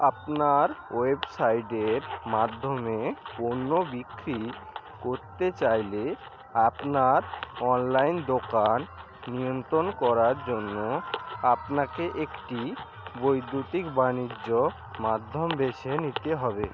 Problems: constant background noise